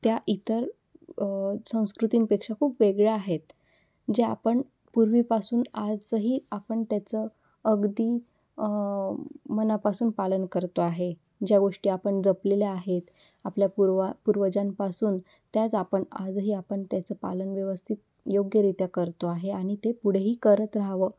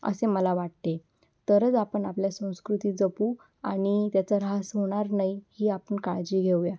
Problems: background sounds at intervals